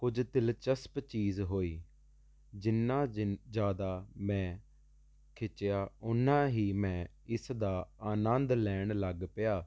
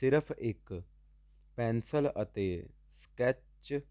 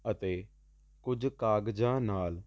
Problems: constant background noise